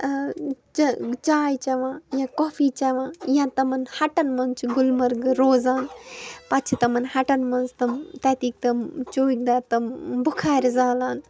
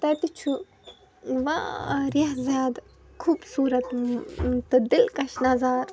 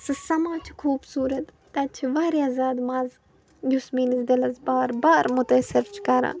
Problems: background sounds at intervals